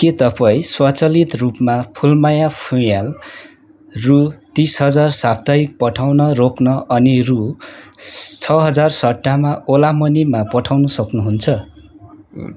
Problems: none marked